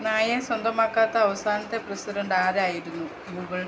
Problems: constant background noise